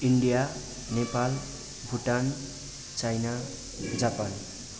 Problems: constant background noise